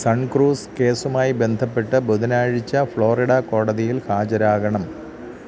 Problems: none marked